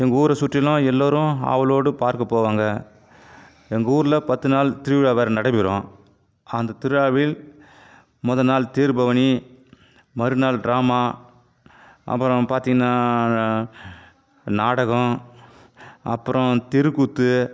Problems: none marked